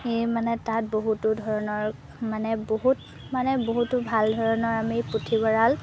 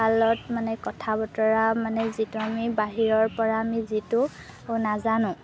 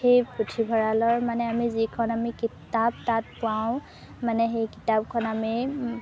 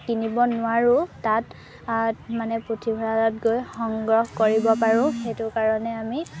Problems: background sounds at intervals